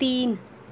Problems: constant background noise